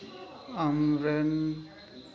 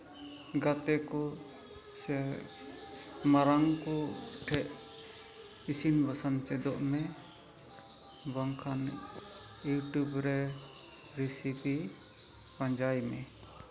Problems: constant background noise, low volume